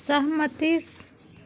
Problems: none marked